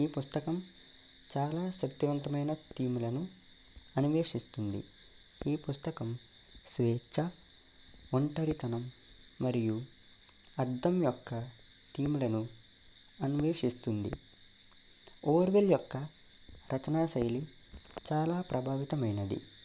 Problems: none marked